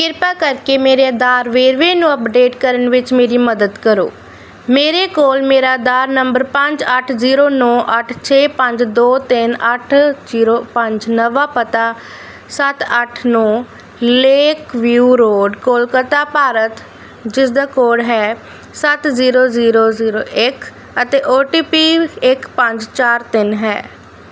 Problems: none marked